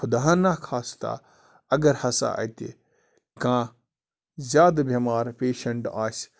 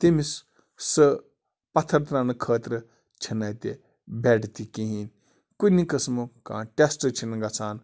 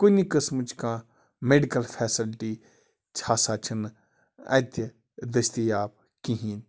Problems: constant background noise